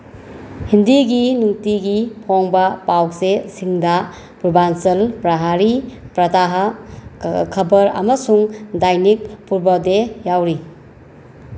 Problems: constant background noise